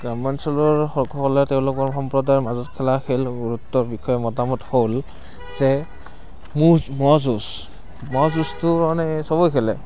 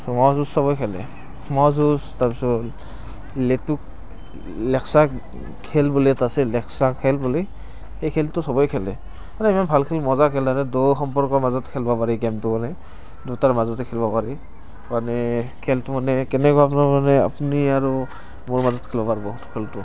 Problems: constant background noise